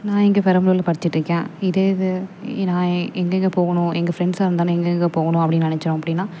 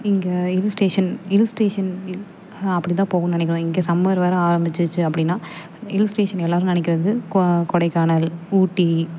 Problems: none marked